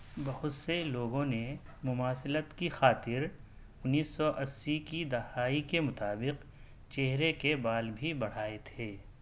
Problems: none marked